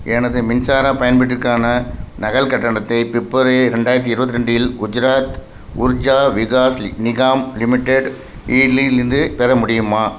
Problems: constant background noise